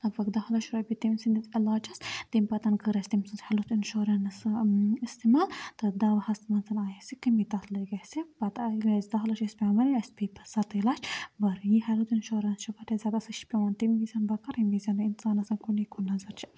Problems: background sounds at intervals, low volume